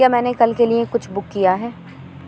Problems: constant background noise